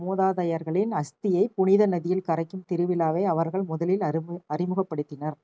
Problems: none marked